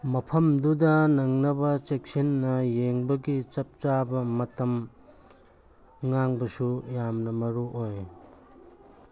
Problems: background sounds at intervals